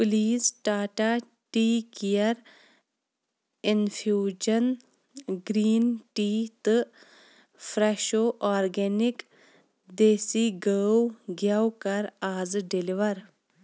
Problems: background sounds at intervals